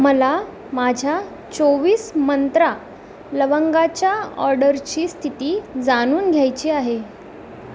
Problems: constant background noise